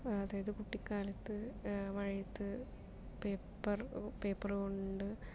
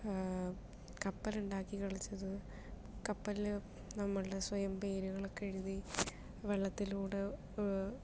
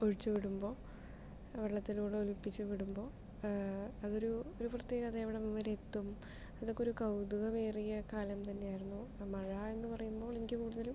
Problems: none marked